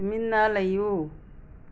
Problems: none marked